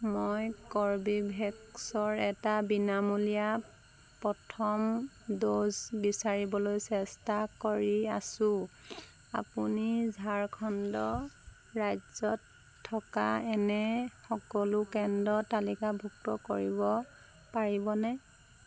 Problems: constant background noise